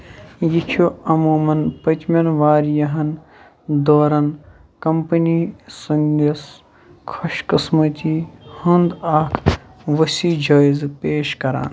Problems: constant background noise